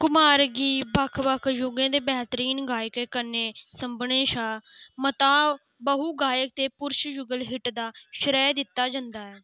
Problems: constant background noise